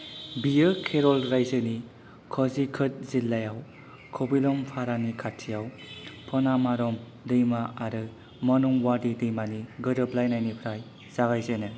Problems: low volume